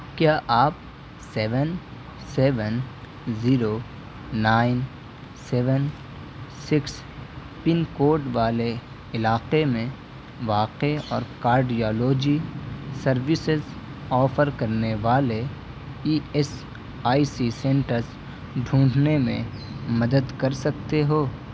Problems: none marked